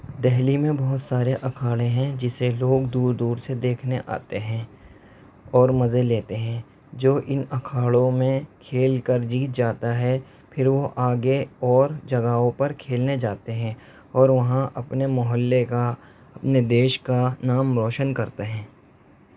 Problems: none marked